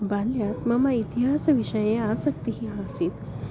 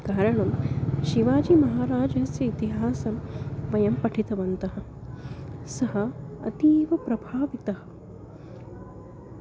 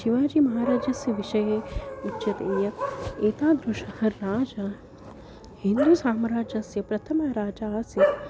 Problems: constant background noise